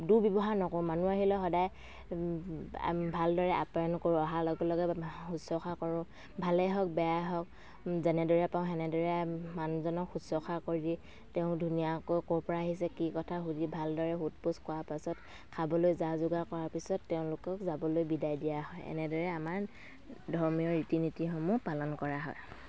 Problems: background sounds at intervals